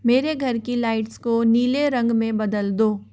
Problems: constant background noise